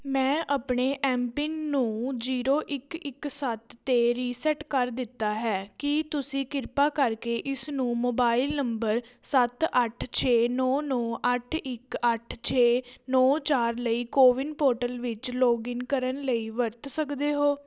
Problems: none marked